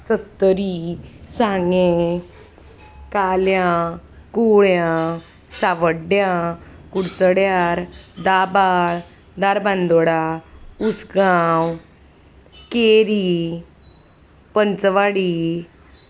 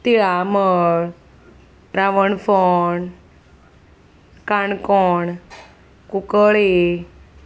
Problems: constant background noise